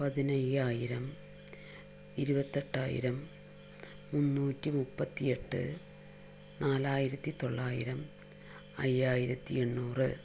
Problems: none marked